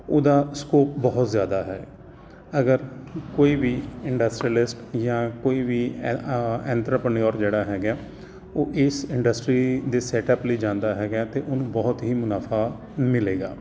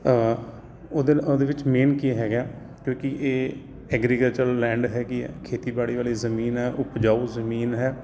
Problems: constant background noise